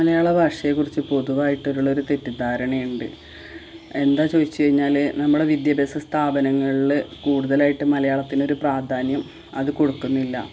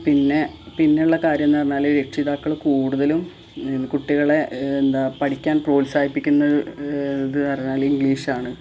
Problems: constant background noise